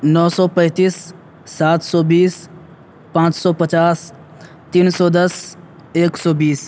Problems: constant background noise